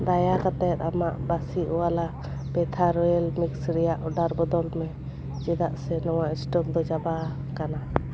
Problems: none marked